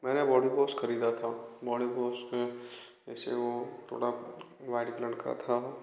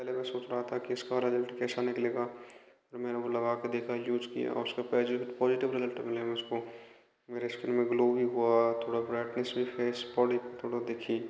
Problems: constant background noise, background conversations at intervals, echo